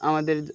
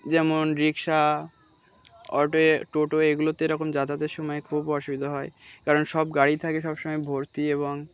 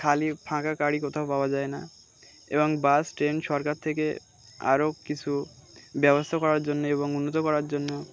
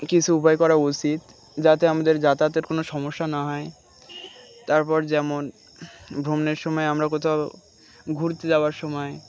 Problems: background sounds at intervals